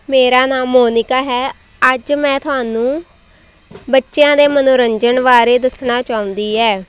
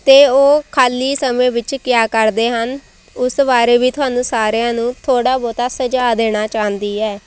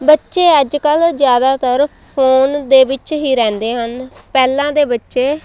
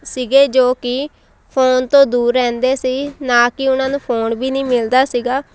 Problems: none marked